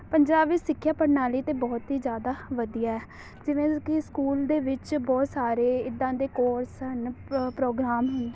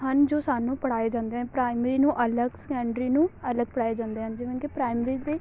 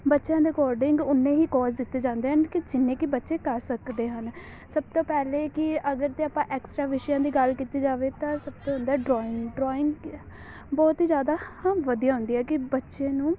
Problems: constant background noise